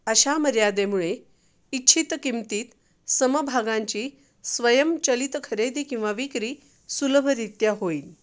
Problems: background sounds at intervals